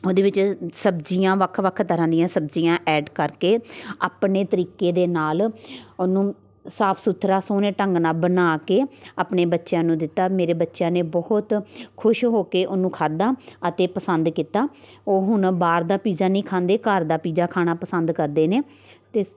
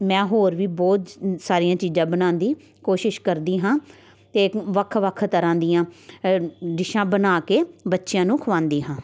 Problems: constant background noise, background conversations at intervals